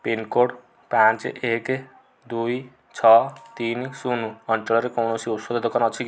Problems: low volume